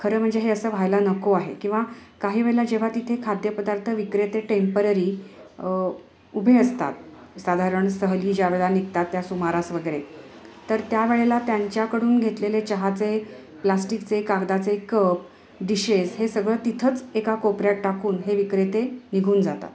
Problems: background sounds at intervals, continuous background conversations